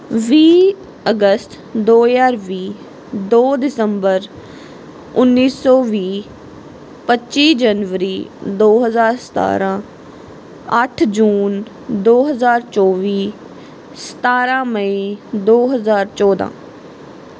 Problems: background sounds at intervals